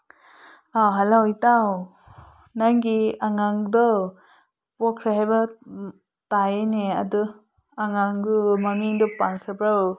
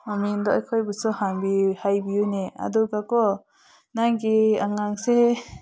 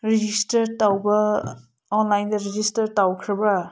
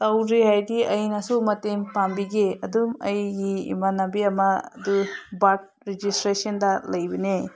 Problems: background conversations at intervals